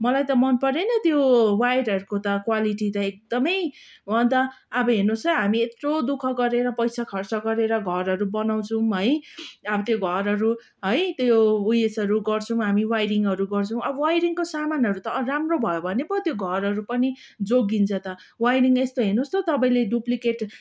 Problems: none marked